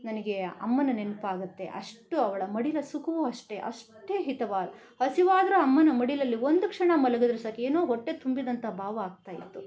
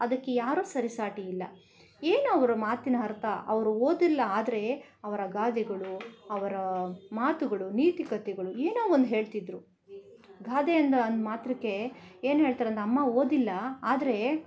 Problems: none marked